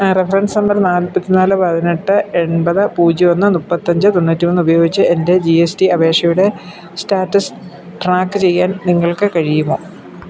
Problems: constant background noise